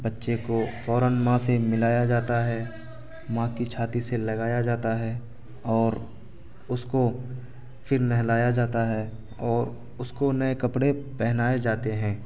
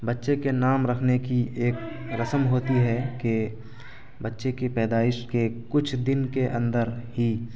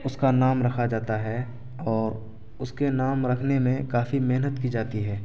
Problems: constant background noise